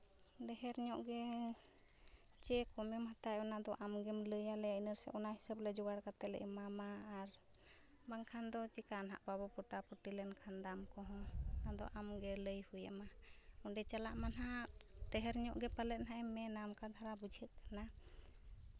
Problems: background sounds at intervals